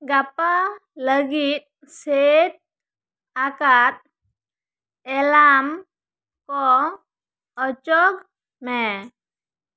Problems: none marked